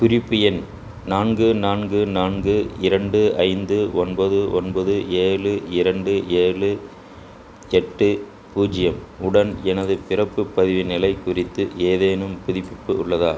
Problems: constant background noise